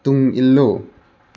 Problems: constant background noise